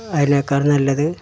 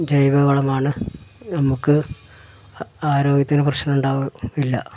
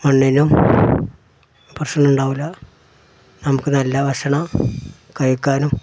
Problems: background sounds at intervals